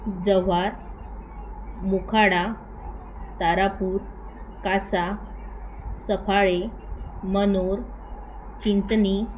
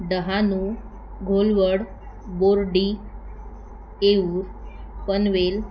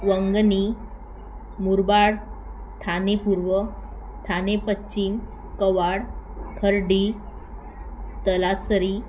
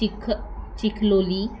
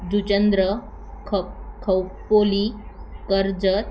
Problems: constant background noise, continuous background conversations